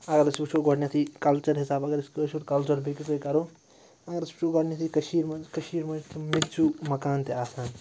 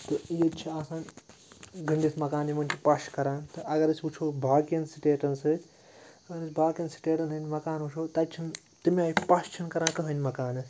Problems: constant background noise